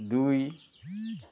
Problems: background sounds at intervals